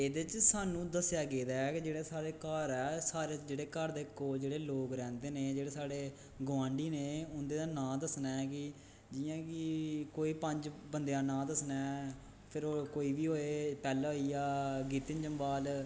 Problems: background sounds at intervals, echo